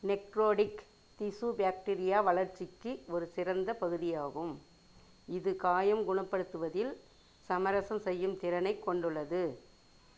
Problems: none marked